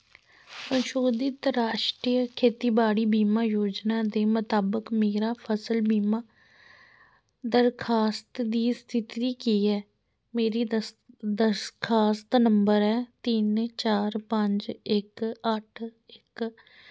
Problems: none marked